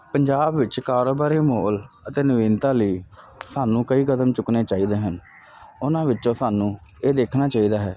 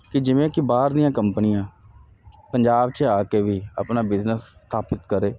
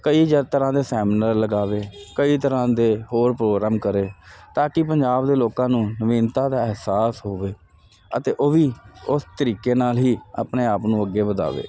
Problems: constant background noise